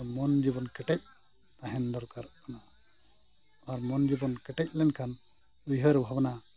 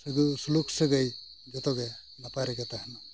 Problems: background sounds at intervals